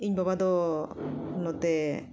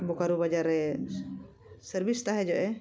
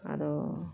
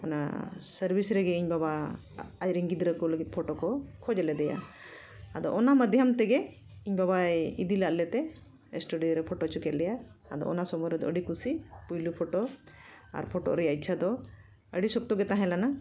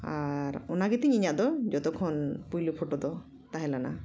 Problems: echo